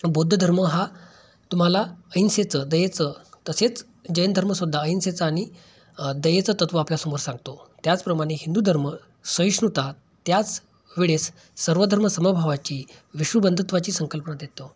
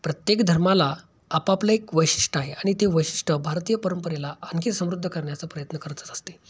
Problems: background sounds at intervals